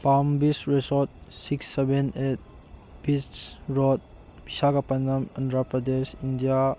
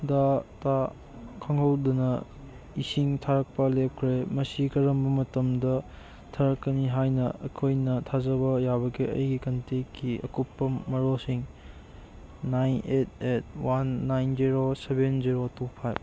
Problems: background sounds at intervals